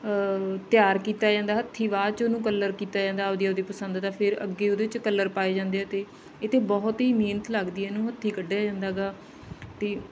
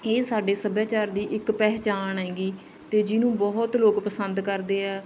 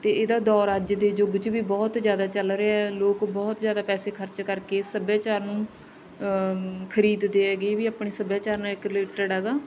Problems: background sounds at intervals, background conversations at intervals